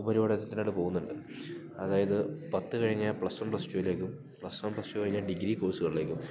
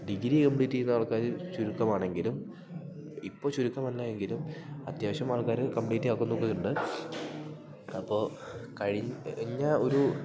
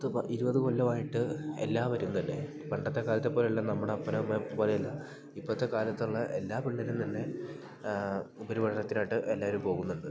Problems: background sounds at intervals